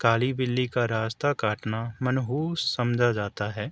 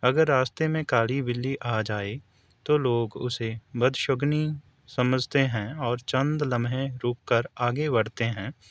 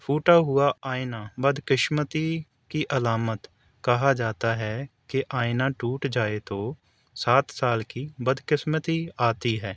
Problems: none marked